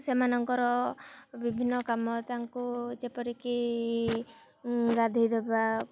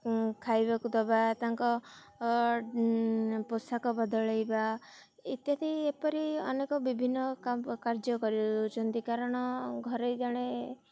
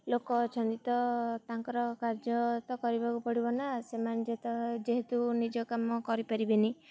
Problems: none marked